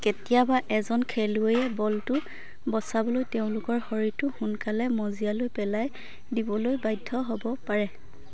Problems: constant background noise, low volume